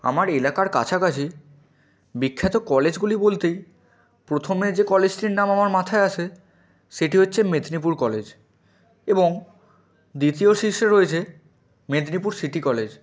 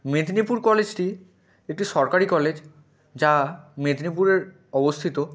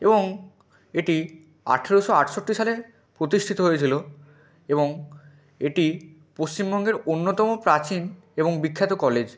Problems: background sounds at intervals